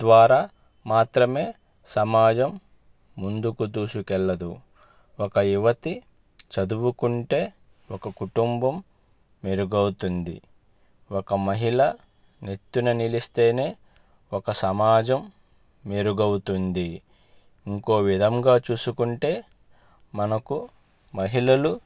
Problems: none marked